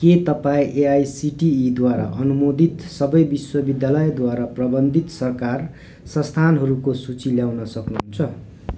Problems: none marked